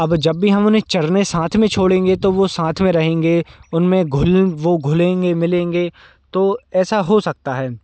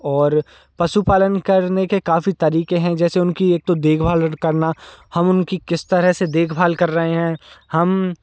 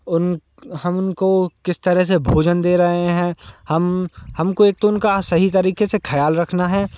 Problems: constant background noise